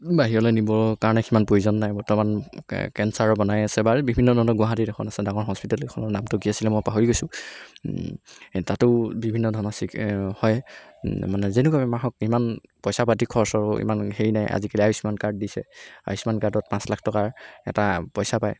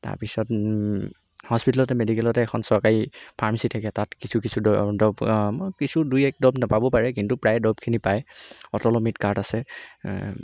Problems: background sounds at intervals